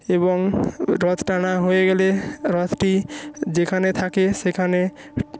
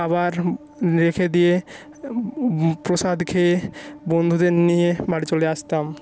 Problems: constant background noise